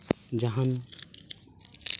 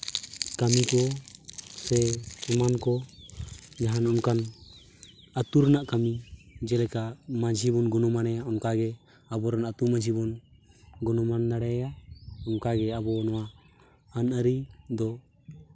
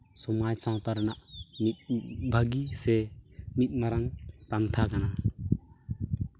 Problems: background sounds at intervals